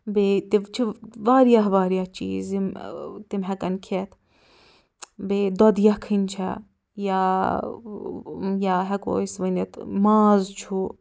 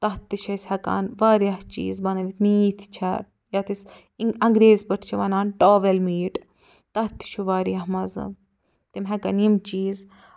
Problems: none marked